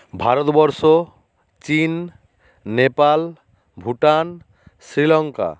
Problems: constant background noise